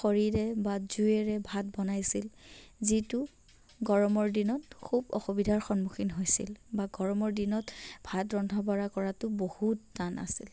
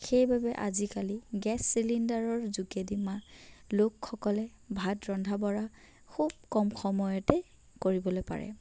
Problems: background conversations at intervals, low volume